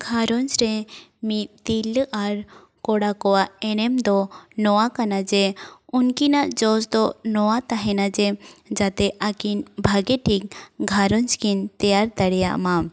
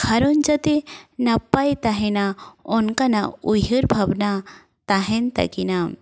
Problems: background sounds at intervals